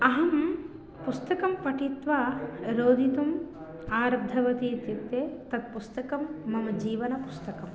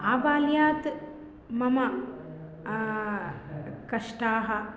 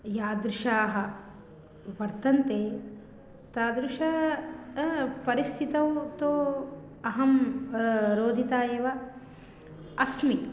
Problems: none marked